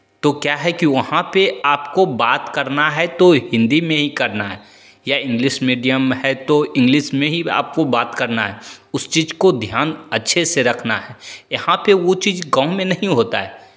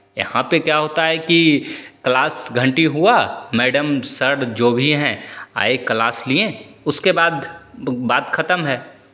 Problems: constant background noise, echo